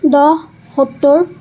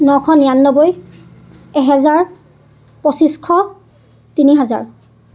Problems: constant background noise, background conversations at intervals